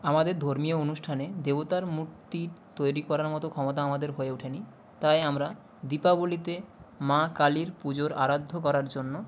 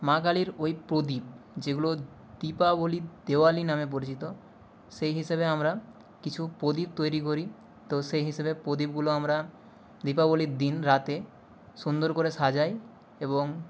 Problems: constant background noise